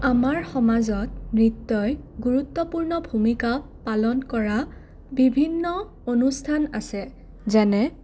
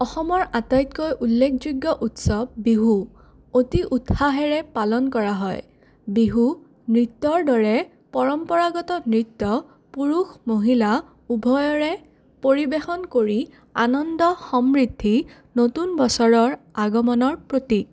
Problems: none marked